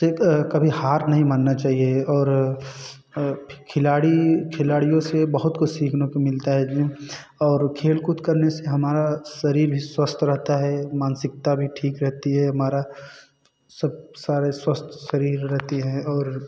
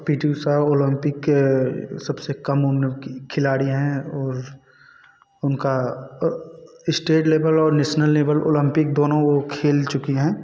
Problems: constant background noise